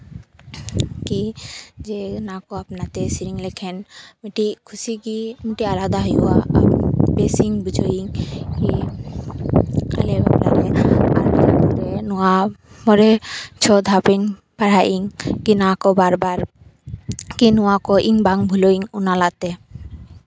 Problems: background sounds at intervals